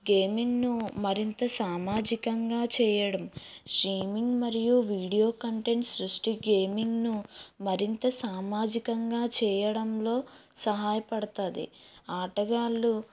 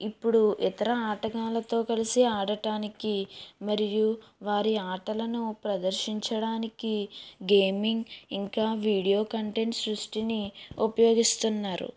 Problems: low volume